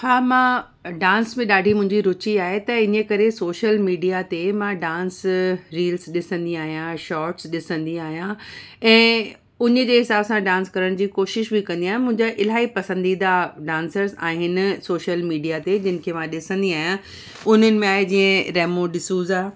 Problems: none marked